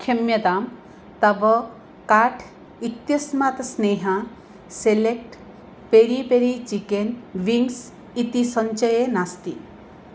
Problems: none marked